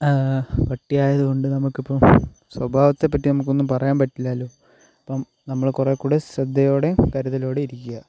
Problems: constant background noise, low volume